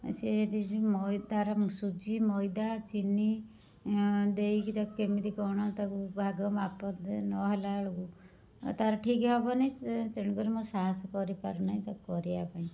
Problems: low volume